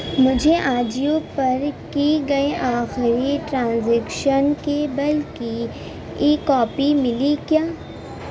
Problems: none marked